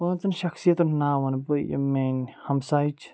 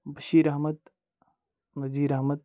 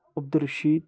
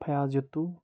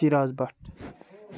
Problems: background sounds at intervals